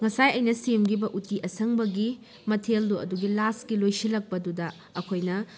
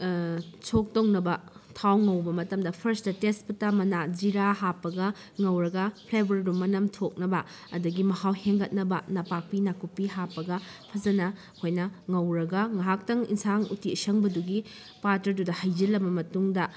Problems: none marked